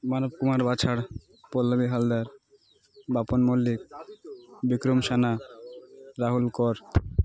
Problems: constant background noise, continuous background conversations